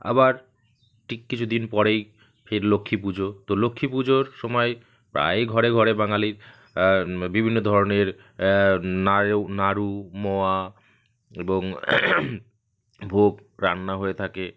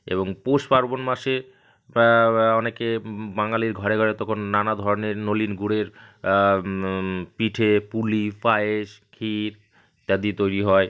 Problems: constant background noise